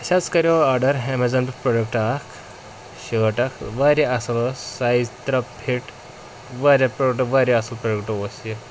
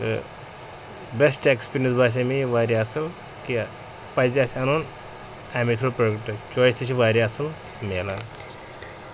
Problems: constant background noise